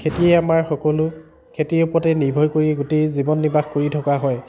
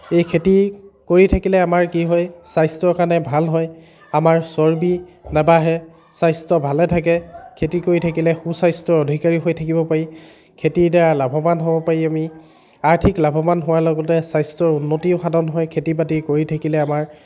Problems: background sounds at intervals, continuous background conversations